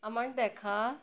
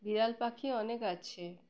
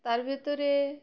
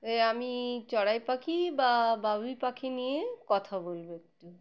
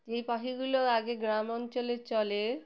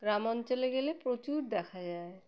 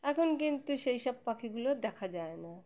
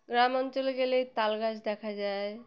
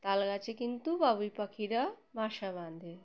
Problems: background sounds at intervals